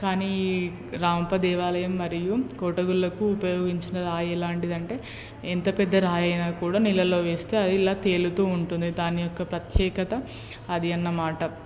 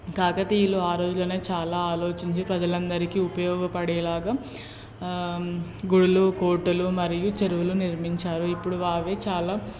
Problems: none marked